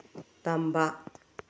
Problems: low volume